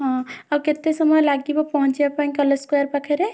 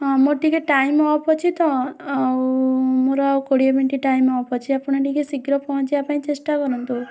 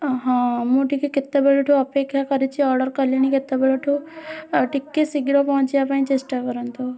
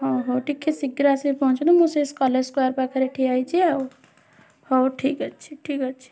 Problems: constant background noise, continuous background conversations